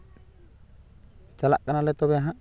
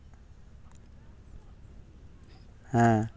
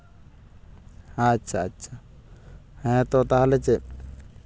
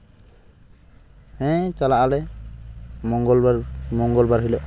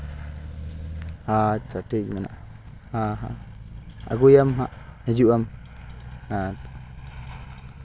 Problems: constant background noise